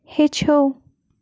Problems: constant background noise